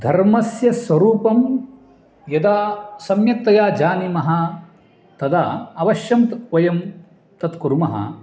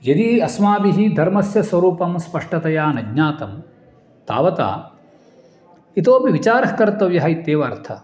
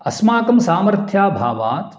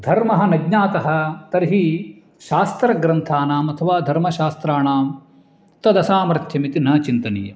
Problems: background sounds at intervals